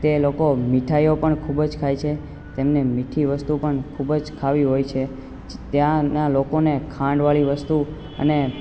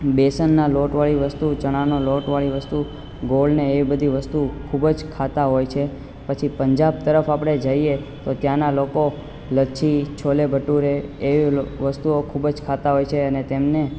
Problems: constant background noise